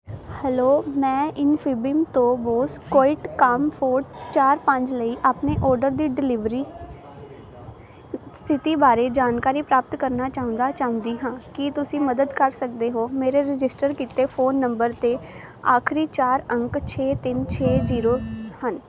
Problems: constant background noise